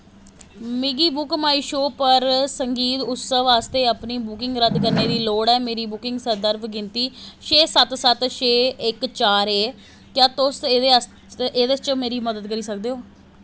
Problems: constant background noise